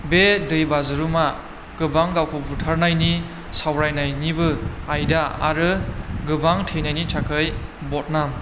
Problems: none marked